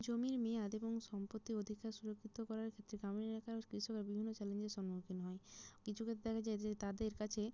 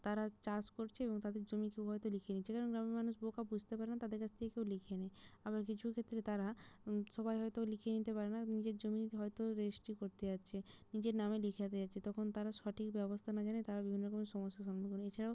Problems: low volume